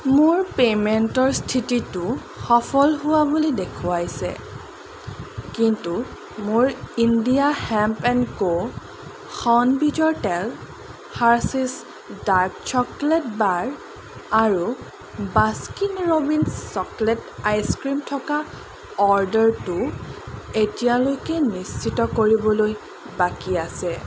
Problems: background sounds at intervals